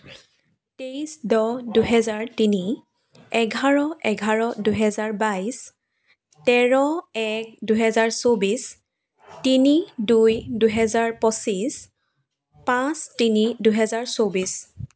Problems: background sounds at intervals